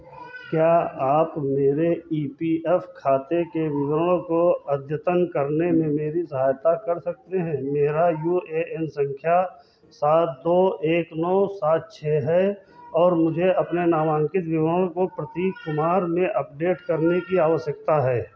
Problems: constant background noise, continuous background conversations